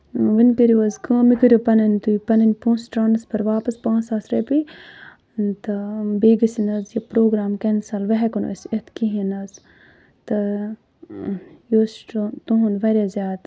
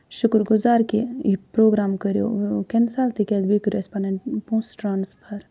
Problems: none marked